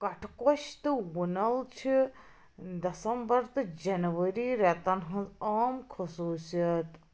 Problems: background sounds at intervals